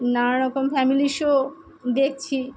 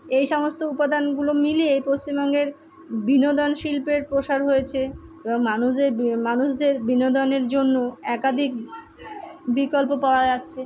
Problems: background sounds at intervals, background conversations at intervals